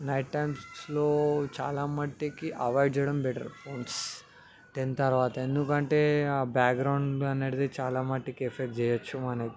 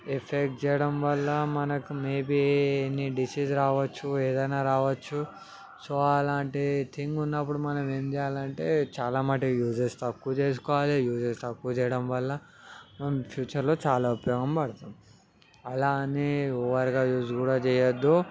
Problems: background conversations at intervals